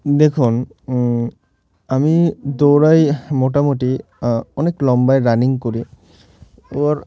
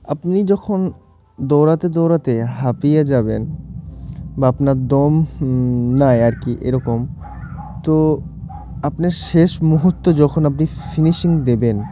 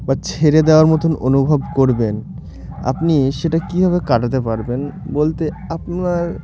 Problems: constant background noise